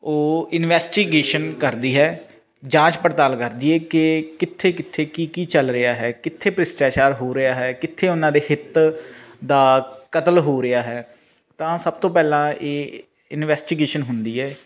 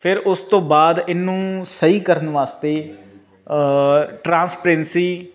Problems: constant background noise